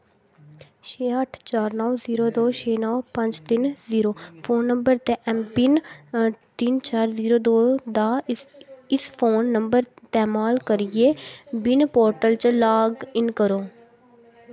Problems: background sounds at intervals, background conversations at intervals